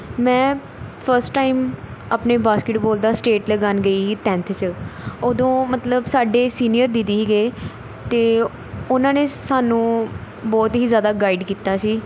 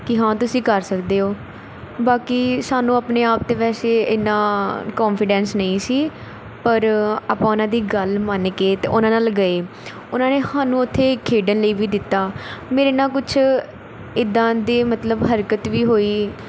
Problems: constant background noise